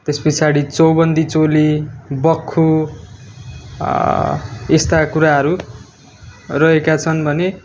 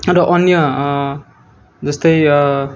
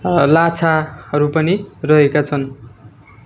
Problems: background sounds at intervals